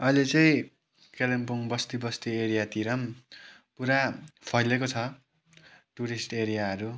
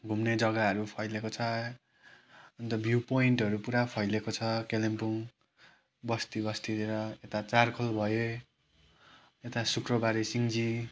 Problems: background sounds at intervals